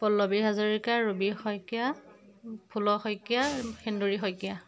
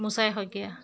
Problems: background sounds at intervals